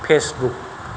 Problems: constant background noise